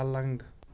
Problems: background sounds at intervals